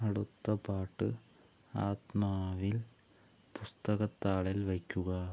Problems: none marked